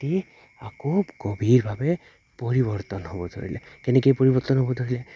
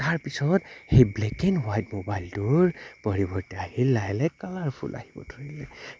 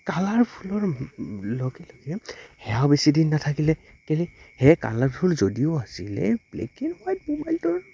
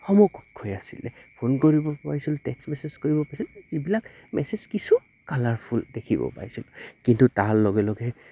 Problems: constant background noise